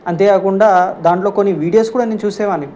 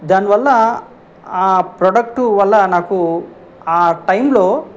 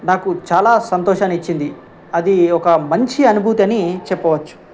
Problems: none marked